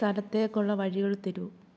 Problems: low volume